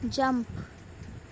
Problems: constant background noise